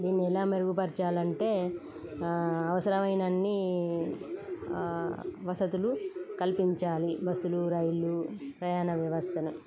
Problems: constant background noise